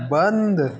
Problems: constant background noise